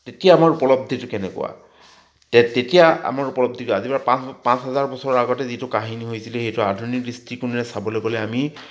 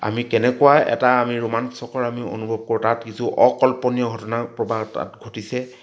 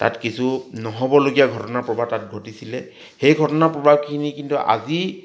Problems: none marked